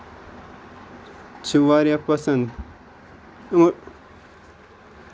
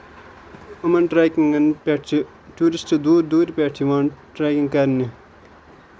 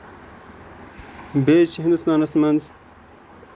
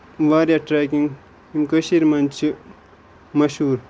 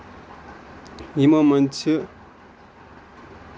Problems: constant background noise